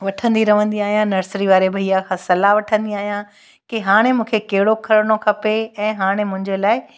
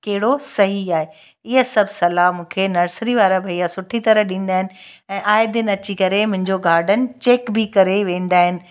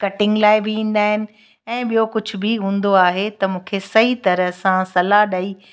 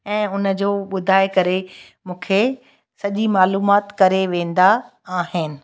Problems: none marked